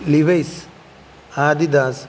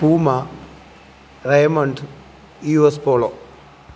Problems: constant background noise